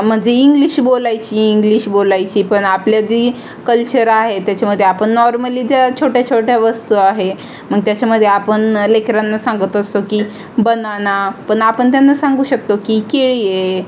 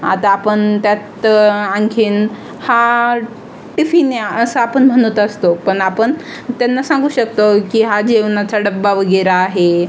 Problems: constant background noise, background conversations at intervals